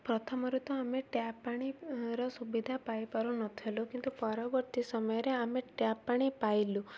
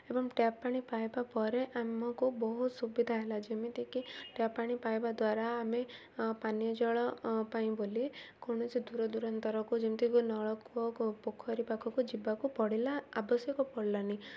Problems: none marked